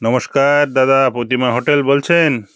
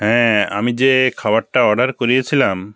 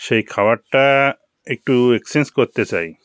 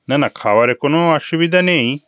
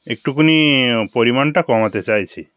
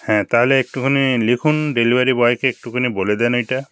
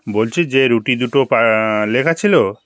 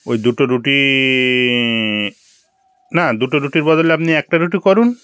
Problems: none marked